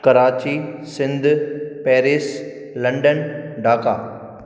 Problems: background sounds at intervals, echo